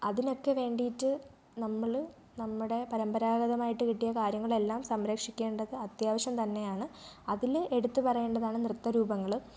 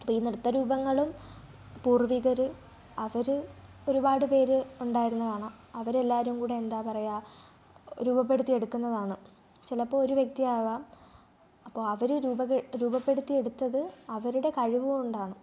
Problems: low volume